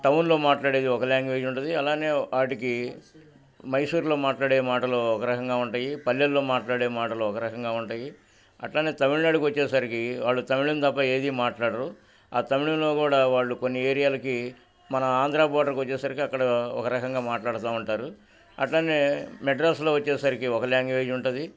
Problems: none marked